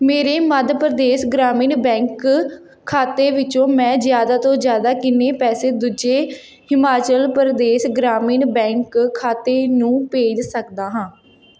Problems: none marked